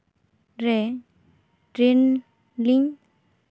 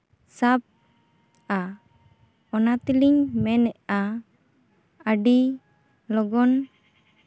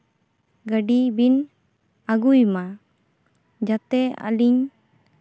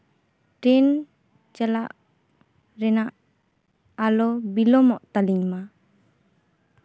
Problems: background sounds at intervals